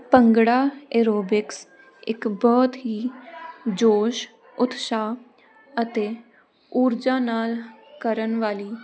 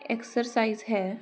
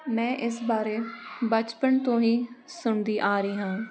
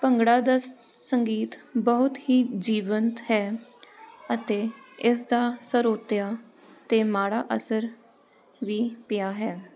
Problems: none marked